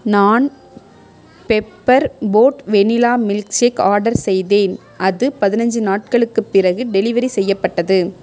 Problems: background conversations at intervals